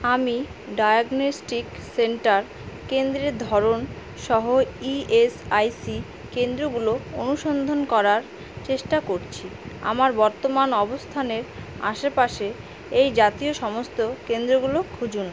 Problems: constant background noise